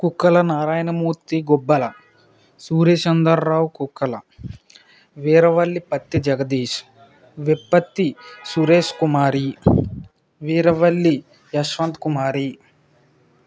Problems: none marked